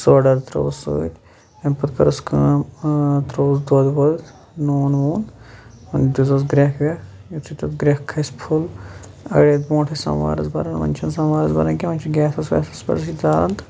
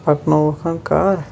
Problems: constant background noise